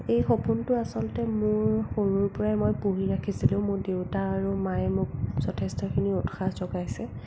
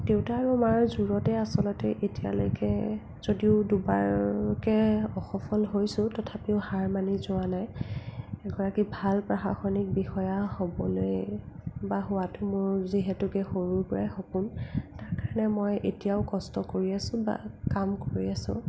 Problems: low volume